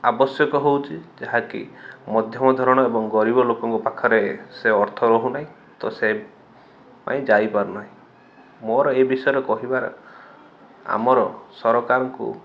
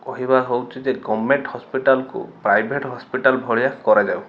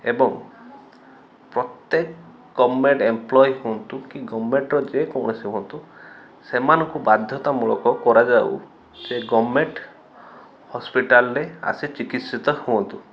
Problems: none marked